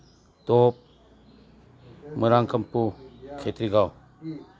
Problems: background sounds at intervals